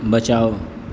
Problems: none marked